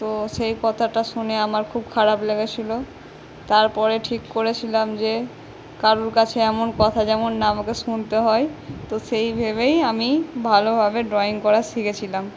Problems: none marked